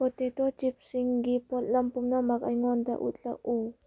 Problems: low volume